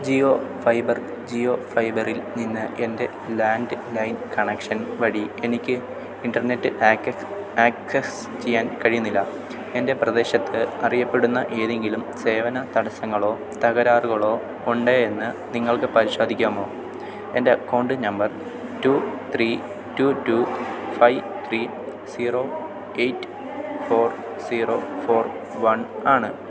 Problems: constant background noise